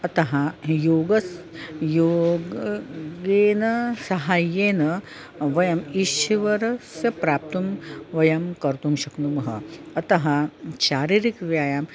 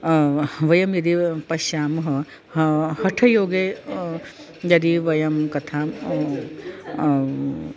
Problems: constant background noise